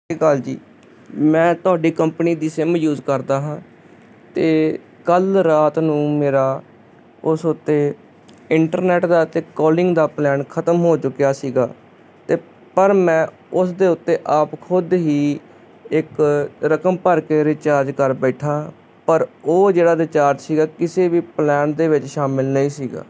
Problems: none marked